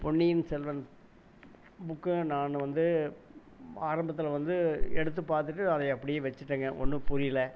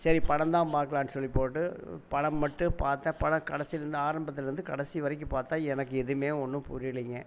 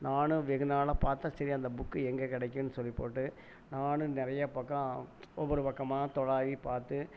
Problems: background sounds at intervals